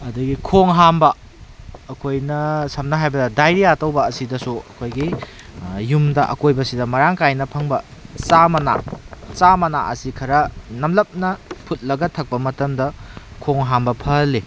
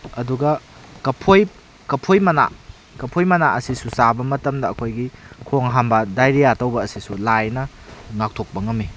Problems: background sounds at intervals